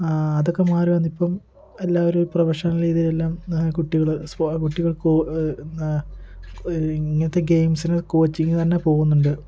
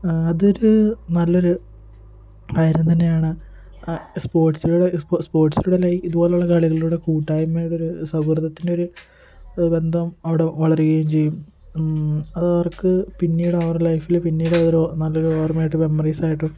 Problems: continuous background conversations